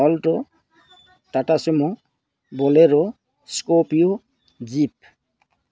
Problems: none marked